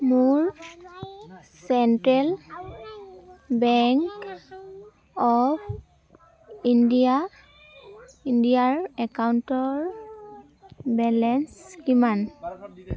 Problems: none marked